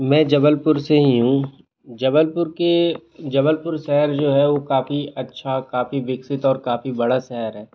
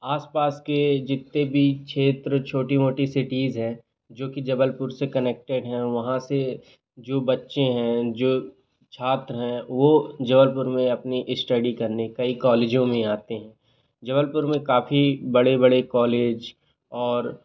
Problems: constant background noise